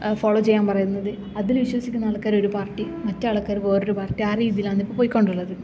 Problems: background sounds at intervals